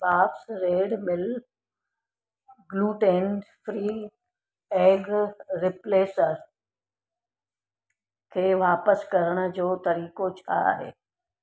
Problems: none marked